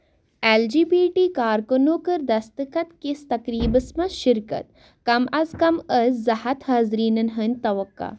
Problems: none marked